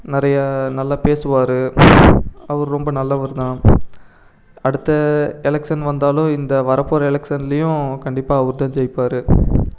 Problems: background sounds at intervals